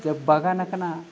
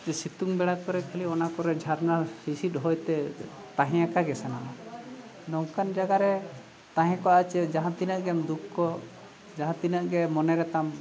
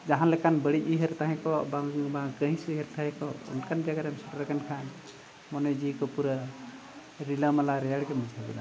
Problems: none marked